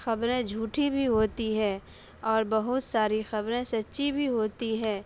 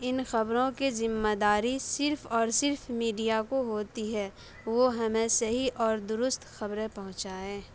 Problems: none marked